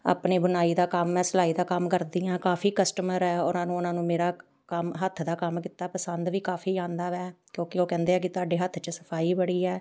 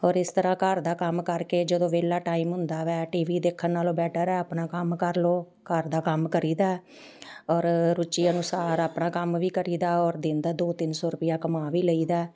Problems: background sounds at intervals